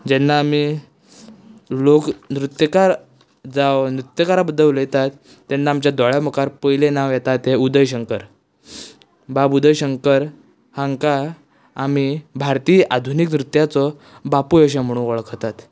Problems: none marked